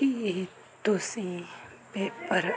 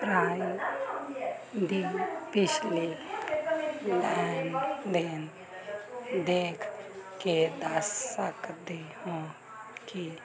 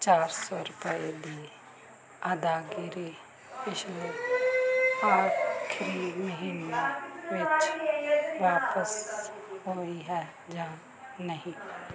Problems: continuous background conversations